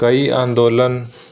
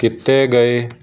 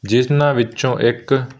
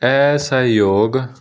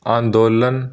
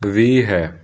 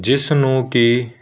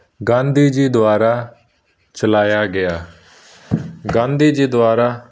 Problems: none marked